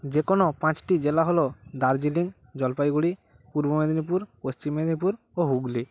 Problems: constant background noise